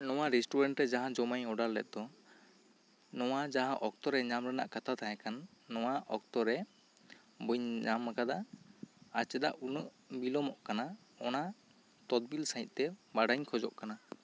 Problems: constant background noise